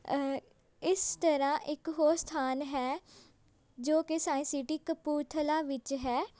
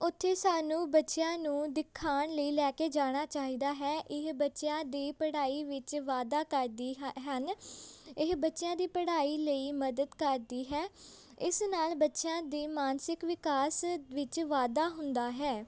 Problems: constant background noise, background conversations at intervals